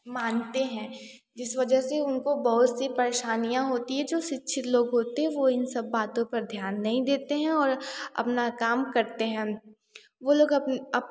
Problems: none marked